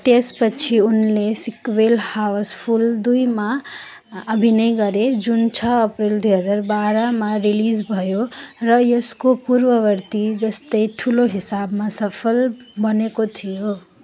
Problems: none marked